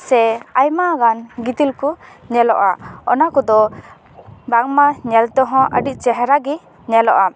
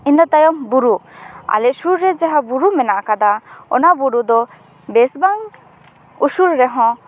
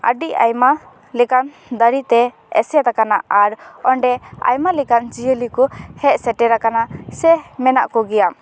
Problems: none marked